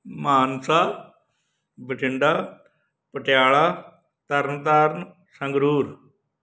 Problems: background sounds at intervals